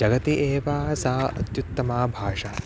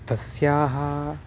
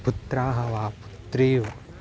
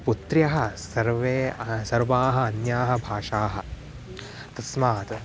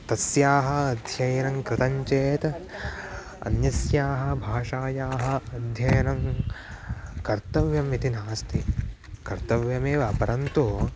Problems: background sounds at intervals